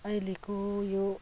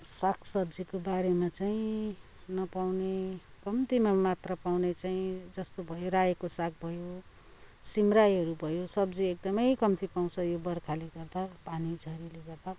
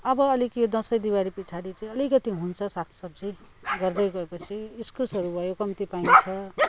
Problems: constant background noise